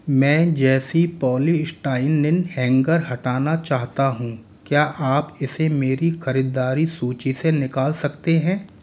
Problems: none marked